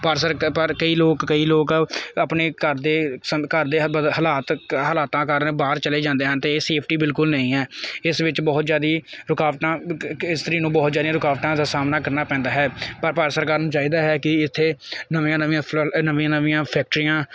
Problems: none marked